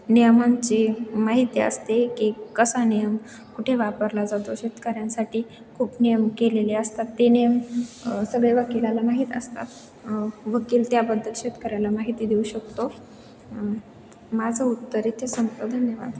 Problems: none marked